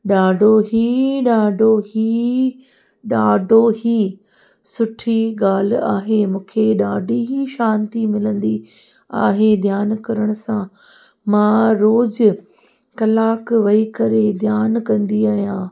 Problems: echo